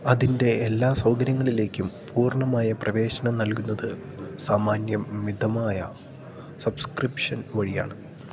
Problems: none marked